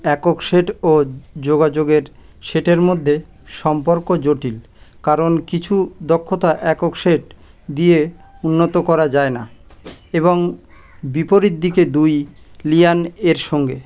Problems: constant background noise